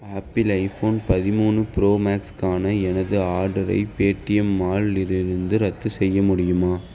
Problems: background sounds at intervals